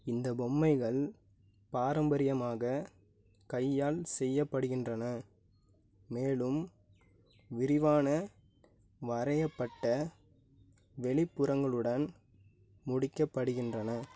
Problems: low volume